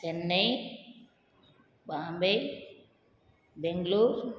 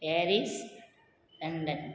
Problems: none marked